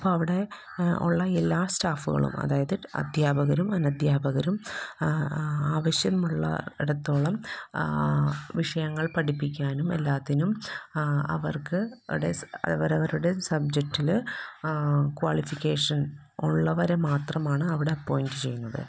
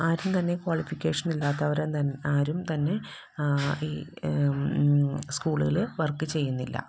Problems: constant background noise, low volume